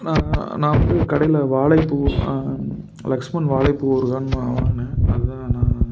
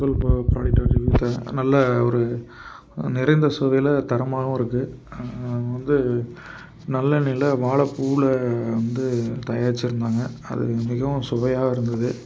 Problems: constant background noise